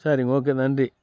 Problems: none marked